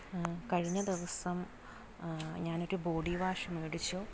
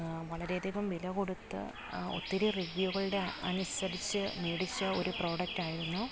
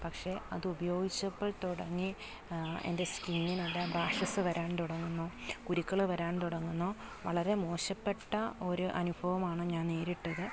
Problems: constant background noise